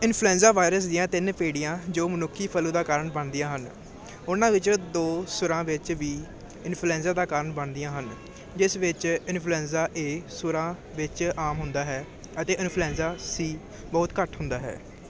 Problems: none marked